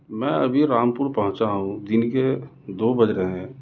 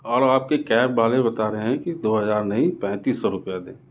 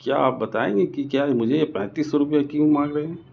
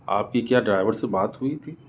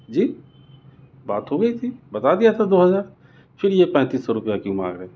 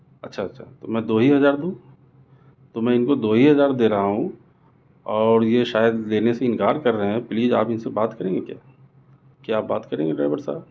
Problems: none marked